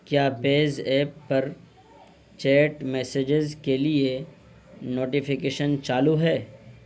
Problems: constant background noise